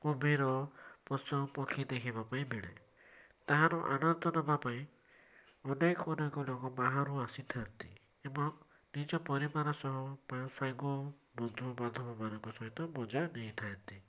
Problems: none marked